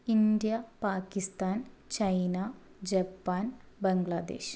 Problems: low volume